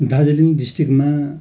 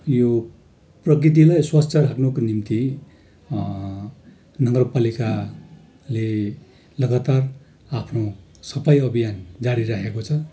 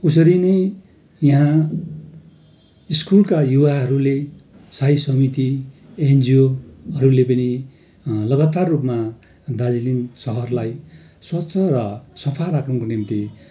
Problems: constant background noise